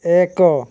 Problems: none marked